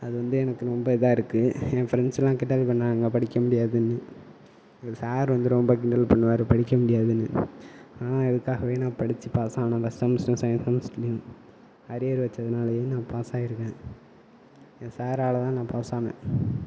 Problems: background sounds at intervals, low volume